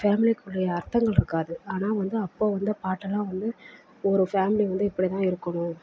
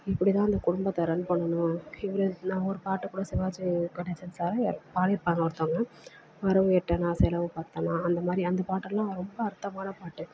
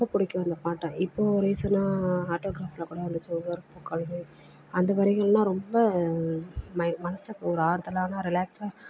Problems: constant background noise, low volume